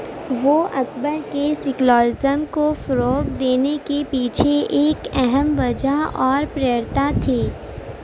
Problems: none marked